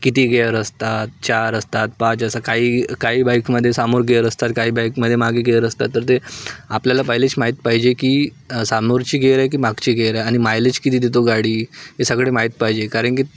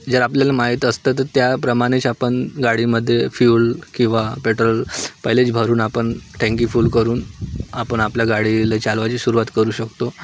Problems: none marked